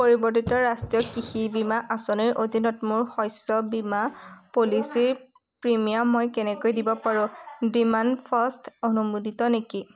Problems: constant background noise, background conversations at intervals